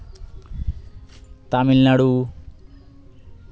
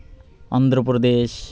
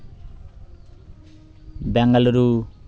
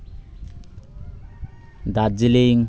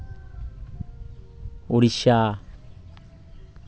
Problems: none marked